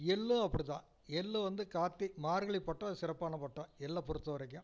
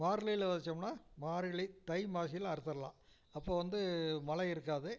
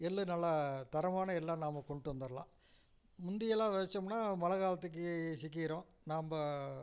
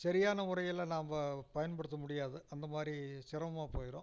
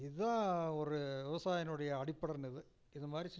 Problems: none marked